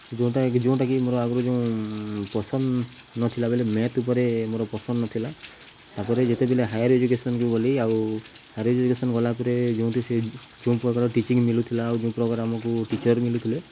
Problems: none marked